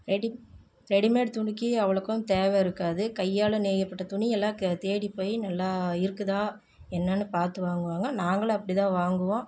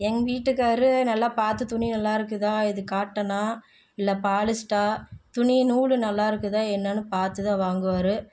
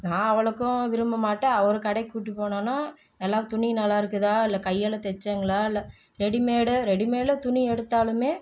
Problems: low volume